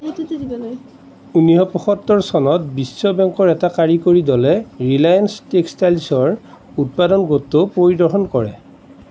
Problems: background conversations at intervals